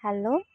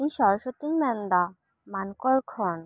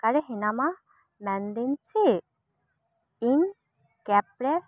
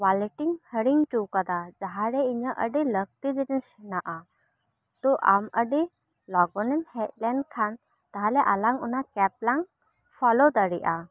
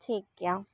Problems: background sounds at intervals